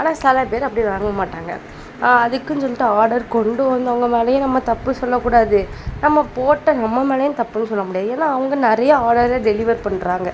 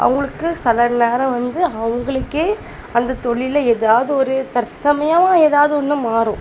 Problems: constant background noise, background conversations at intervals